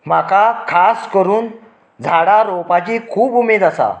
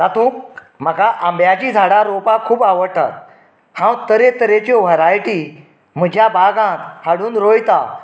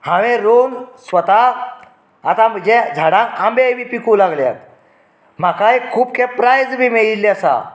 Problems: background sounds at intervals